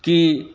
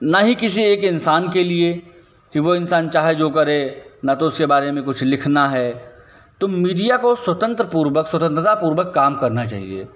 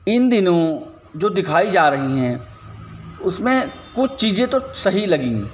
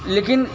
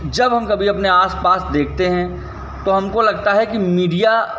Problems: none marked